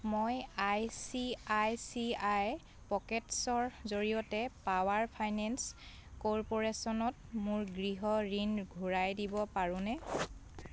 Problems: constant background noise, background conversations at intervals